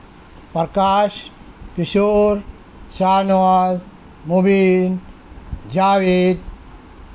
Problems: none marked